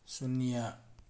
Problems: low volume